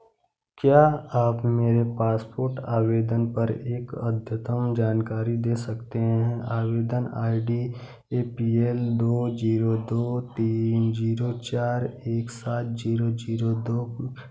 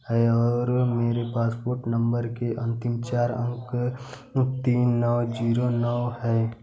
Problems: none marked